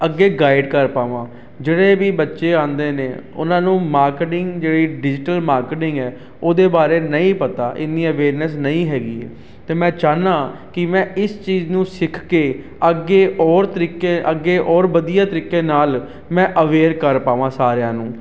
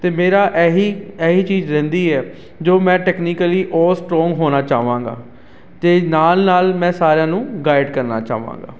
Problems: constant background noise